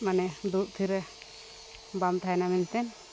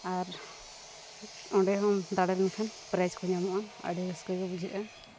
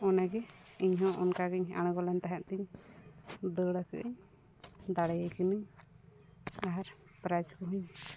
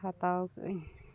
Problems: background sounds at intervals, low volume